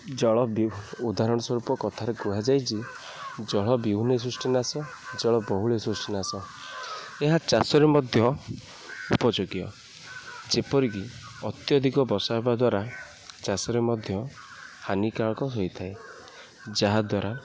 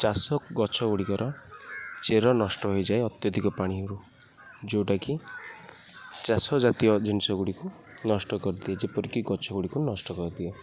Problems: background sounds at intervals, low volume